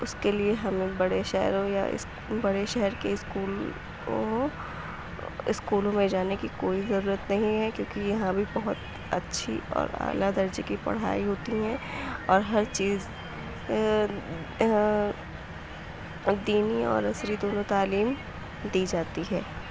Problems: background sounds at intervals